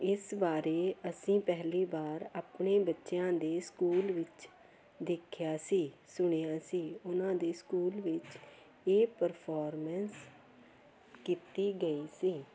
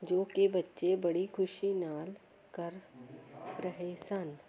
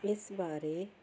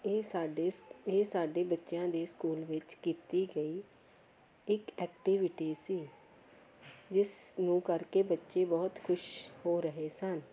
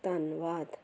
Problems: constant background noise, continuous background conversations